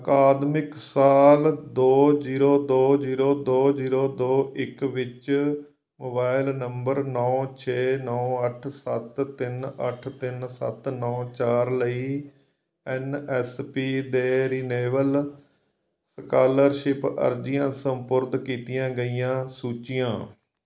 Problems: background sounds at intervals